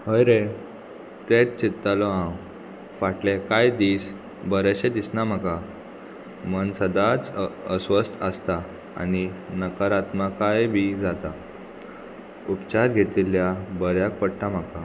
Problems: constant background noise